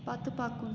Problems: constant background noise